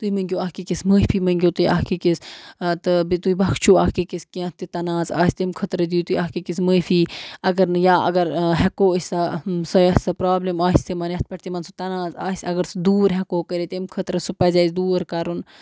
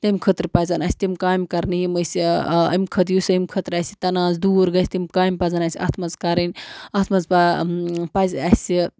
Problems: background sounds at intervals